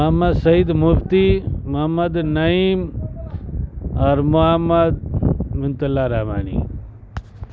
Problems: constant background noise